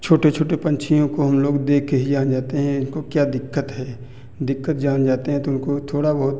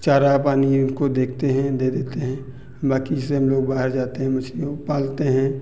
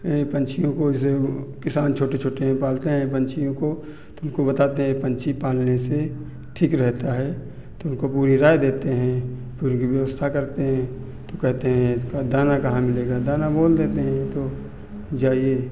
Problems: none marked